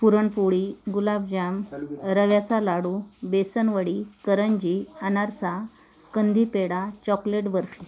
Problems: constant background noise, continuous background conversations